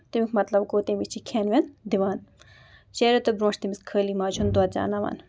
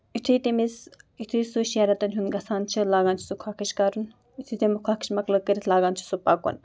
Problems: background sounds at intervals